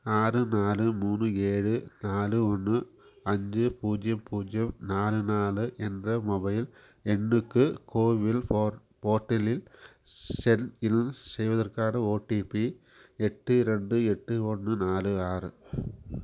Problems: none marked